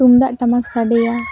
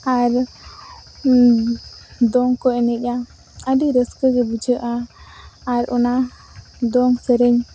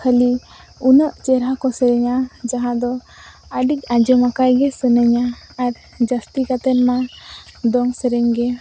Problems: constant background noise